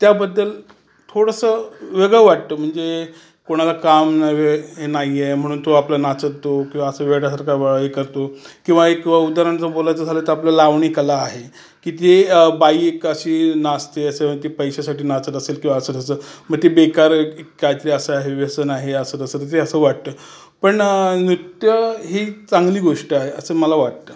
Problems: none marked